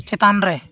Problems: none marked